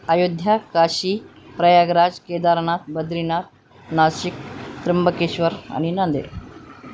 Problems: none marked